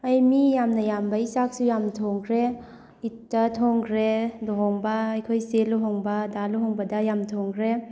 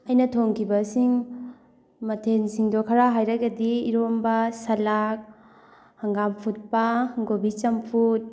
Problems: background sounds at intervals